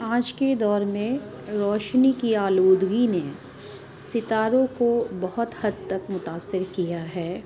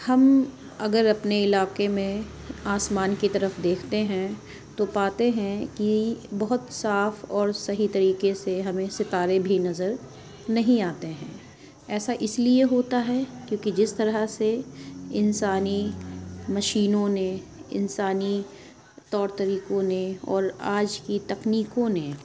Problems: constant background noise